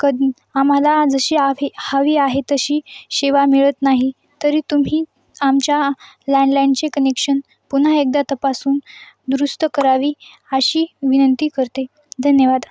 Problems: none marked